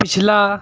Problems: none marked